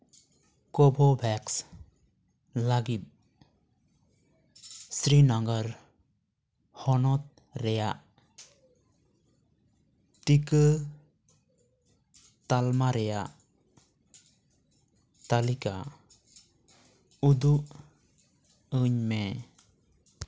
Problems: background sounds at intervals